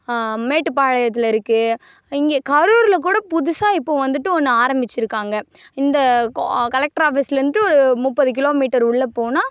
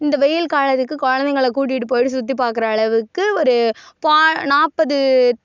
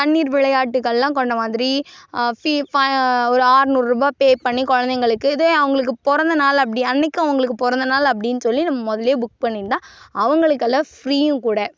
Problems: none marked